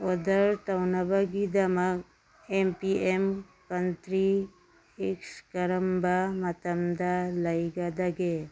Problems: background sounds at intervals